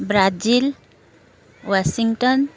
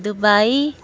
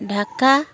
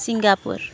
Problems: constant background noise